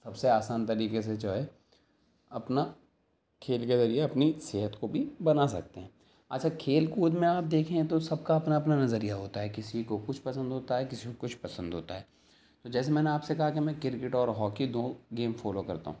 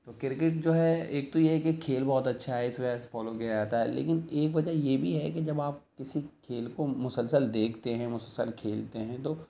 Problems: none marked